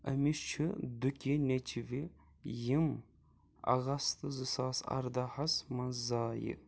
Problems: low volume